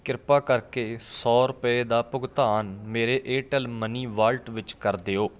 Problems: continuous background conversations